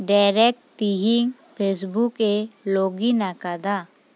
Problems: none marked